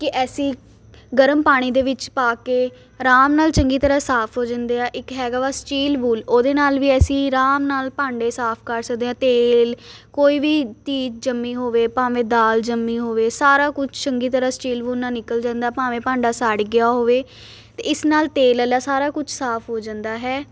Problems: constant background noise